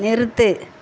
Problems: constant background noise